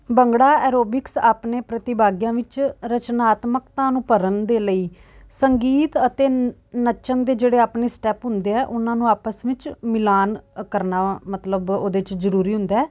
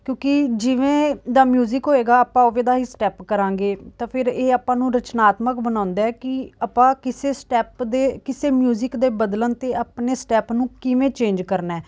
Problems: background sounds at intervals